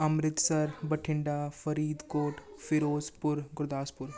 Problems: background conversations at intervals